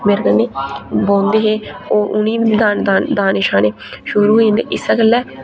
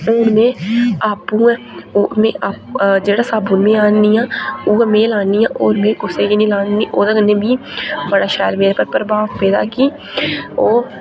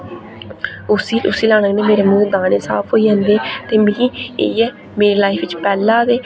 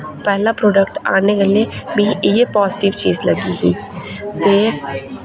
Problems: constant background noise